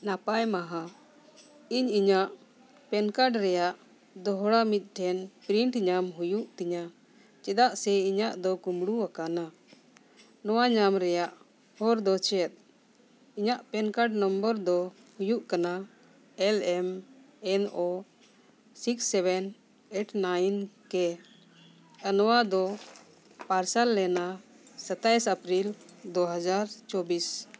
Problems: none marked